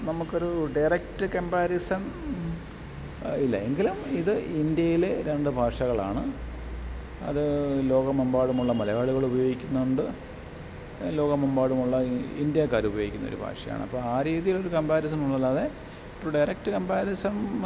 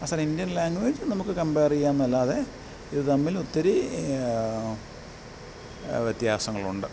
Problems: background sounds at intervals